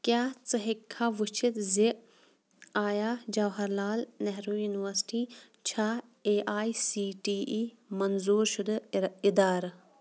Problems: constant background noise